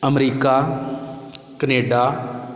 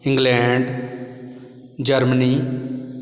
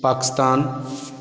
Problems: constant background noise